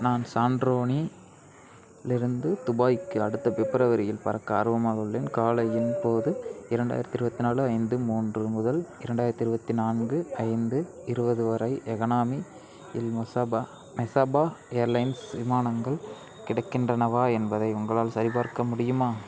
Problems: background sounds at intervals